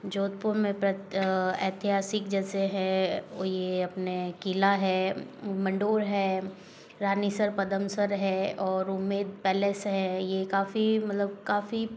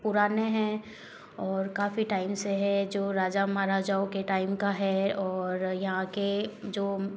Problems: background sounds at intervals